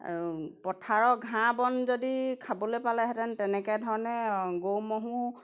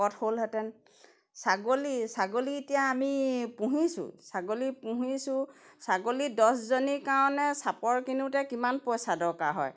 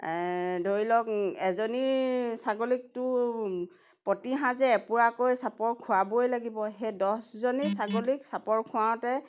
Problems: background sounds at intervals